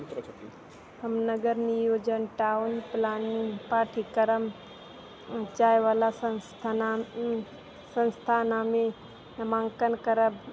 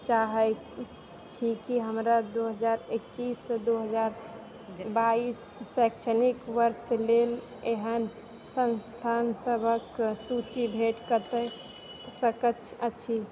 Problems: background sounds at intervals, low volume